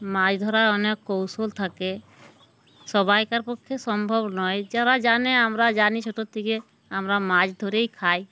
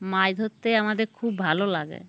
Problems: background sounds at intervals